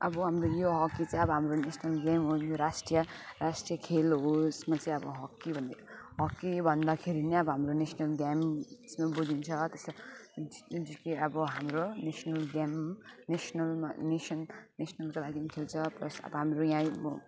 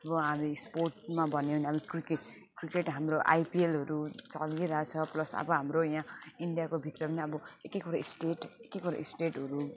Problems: constant background noise, background conversations at intervals